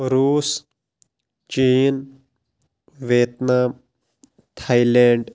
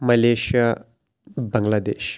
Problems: none marked